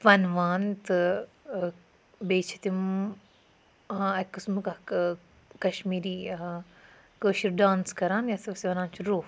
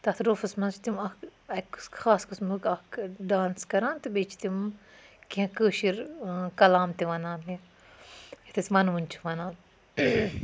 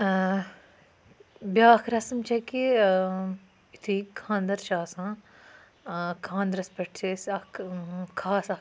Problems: background sounds at intervals